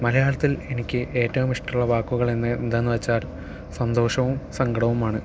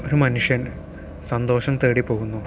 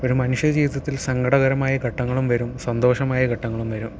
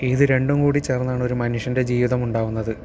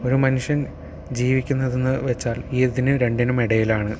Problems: none marked